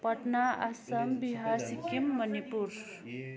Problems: continuous background conversations